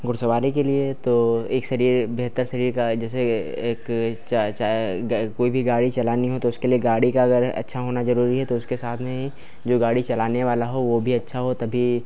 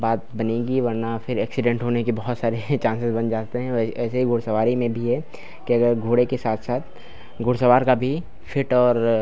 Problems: none marked